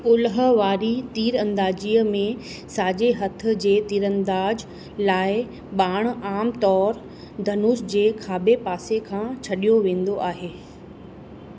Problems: constant background noise